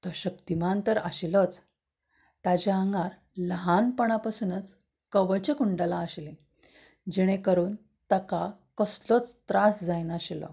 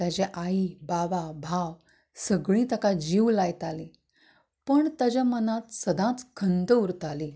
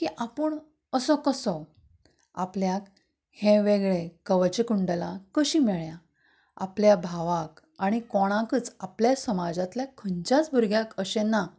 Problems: background sounds at intervals